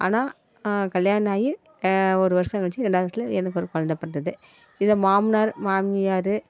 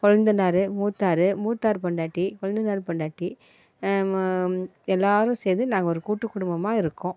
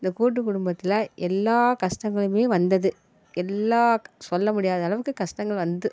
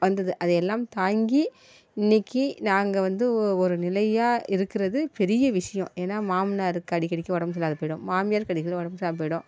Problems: none marked